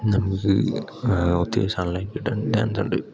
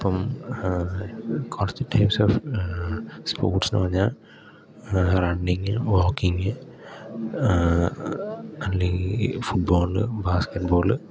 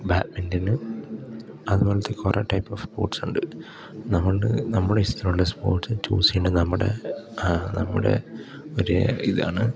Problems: background sounds at intervals, low volume